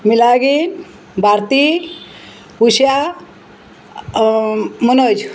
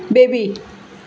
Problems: constant background noise